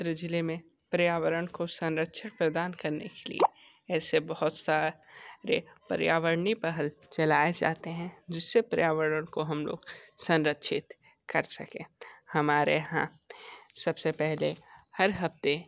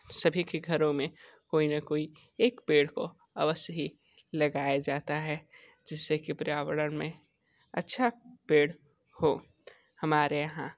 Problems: none marked